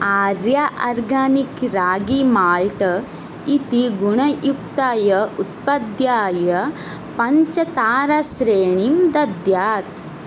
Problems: none marked